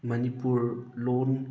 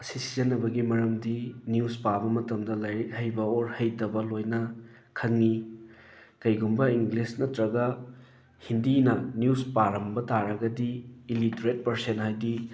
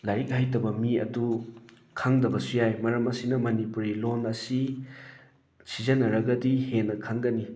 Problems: background sounds at intervals